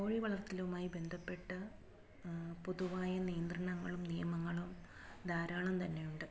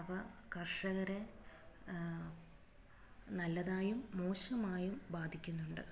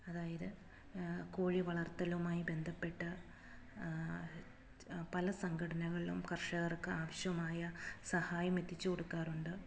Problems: none marked